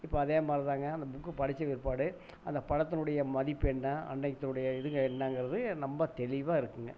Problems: background sounds at intervals